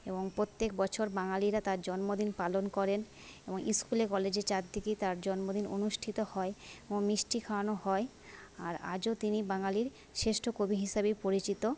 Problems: constant background noise